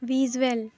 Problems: none marked